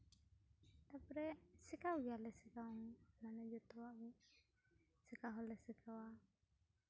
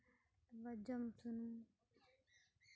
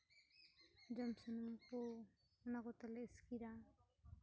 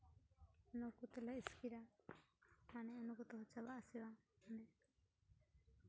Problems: background sounds at intervals